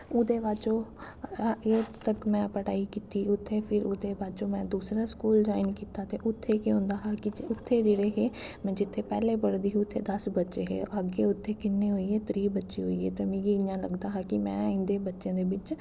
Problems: constant background noise, echo